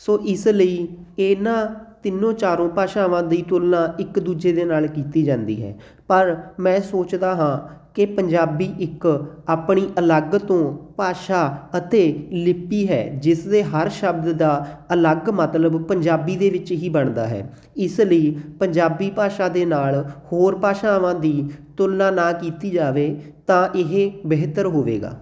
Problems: background sounds at intervals